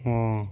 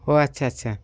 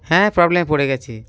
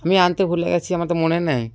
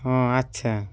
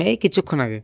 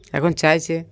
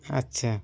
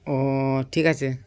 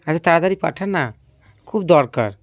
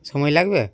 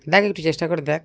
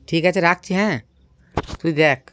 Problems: none marked